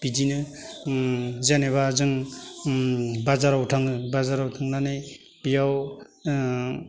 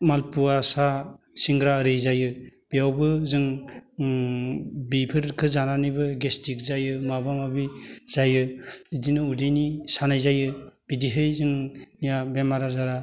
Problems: low volume